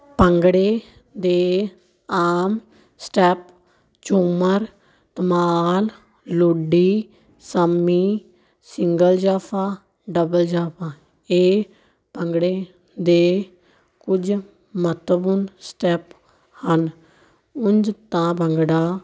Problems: continuous background conversations